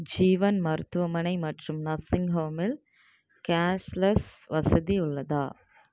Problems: none marked